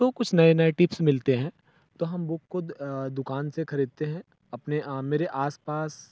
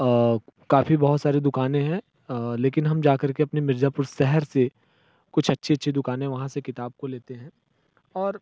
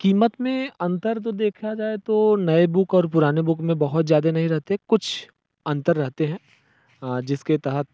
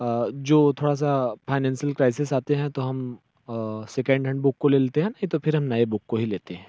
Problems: background sounds at intervals